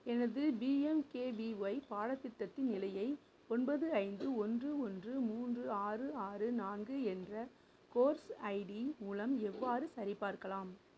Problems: background sounds at intervals, low volume